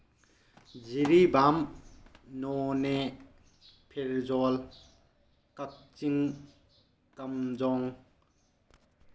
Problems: background sounds at intervals, low volume